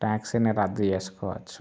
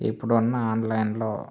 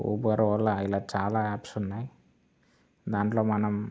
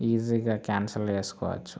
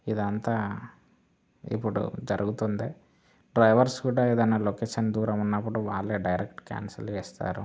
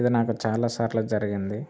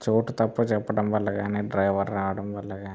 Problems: background sounds at intervals